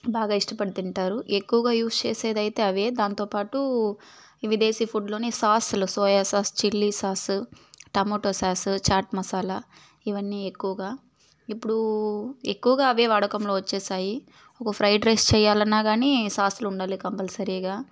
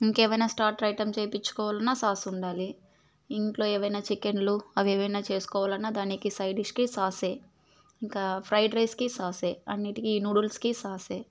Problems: background sounds at intervals